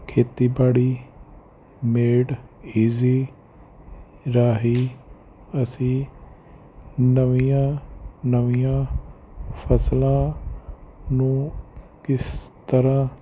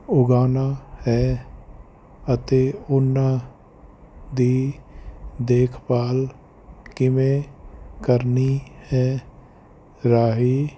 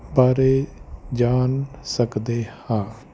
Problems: none marked